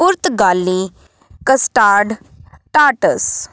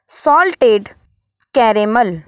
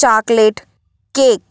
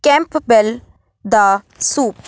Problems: background sounds at intervals